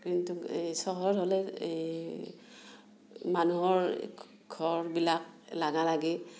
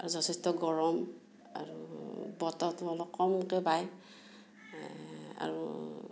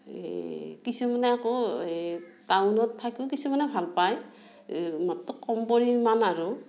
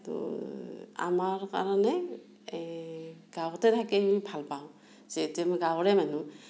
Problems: background sounds at intervals, low volume